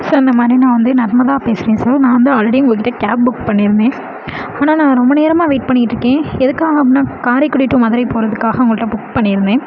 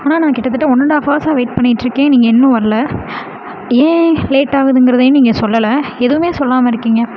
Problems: constant background noise